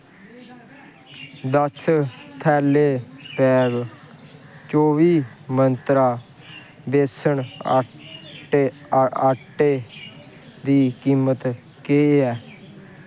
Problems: constant background noise